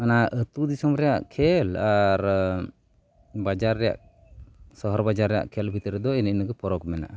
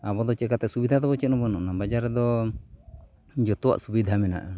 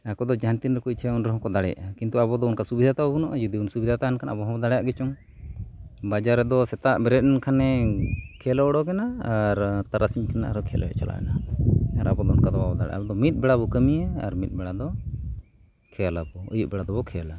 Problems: background sounds at intervals